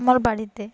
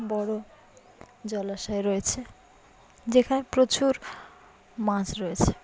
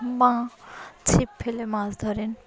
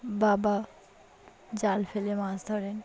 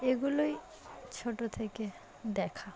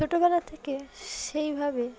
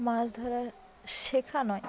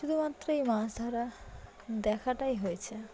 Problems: none marked